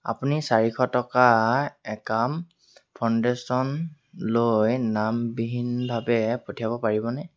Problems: none marked